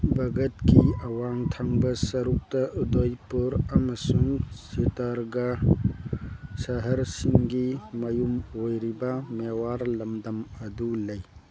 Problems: background sounds at intervals